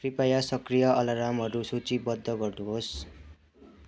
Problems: background conversations at intervals